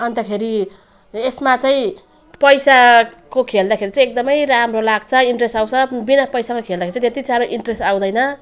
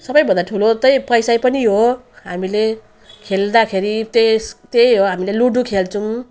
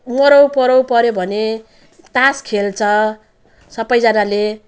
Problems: none marked